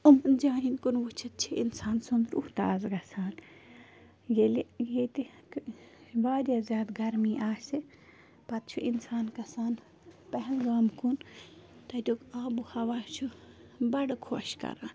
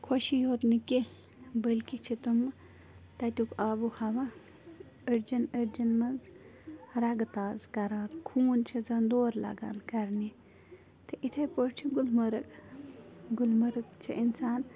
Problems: background sounds at intervals